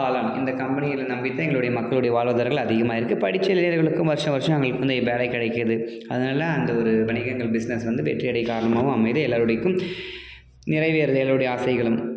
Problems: background conversations at intervals